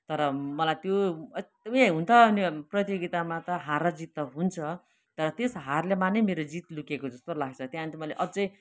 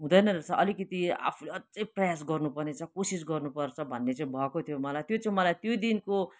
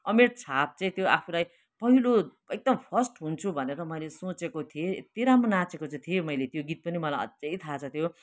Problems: constant background noise, continuous background conversations